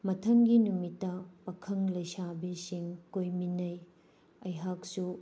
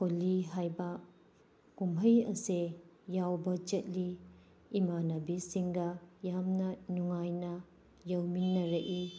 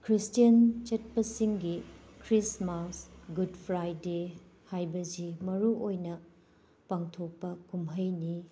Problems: none marked